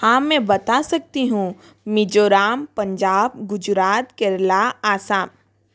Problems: constant background noise